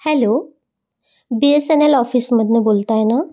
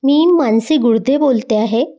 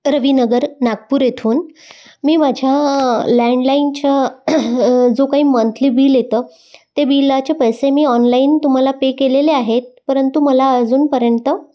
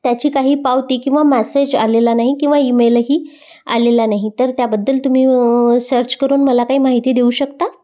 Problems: none marked